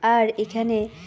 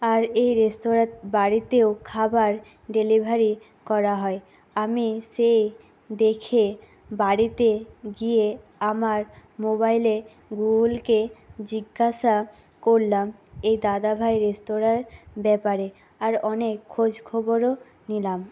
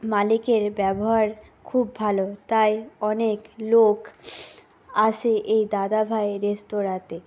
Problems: none marked